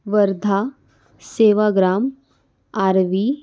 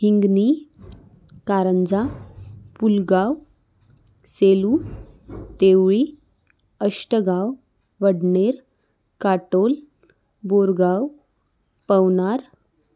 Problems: none marked